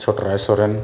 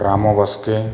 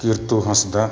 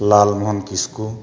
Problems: background sounds at intervals